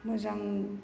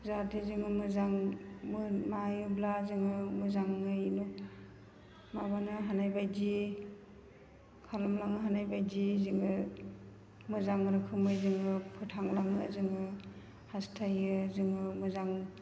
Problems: constant background noise